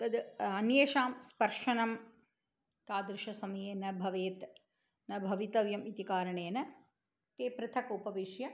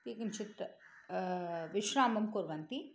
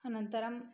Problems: none marked